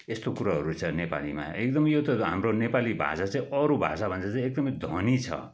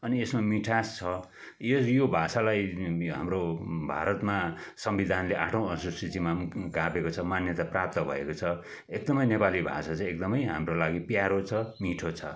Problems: background sounds at intervals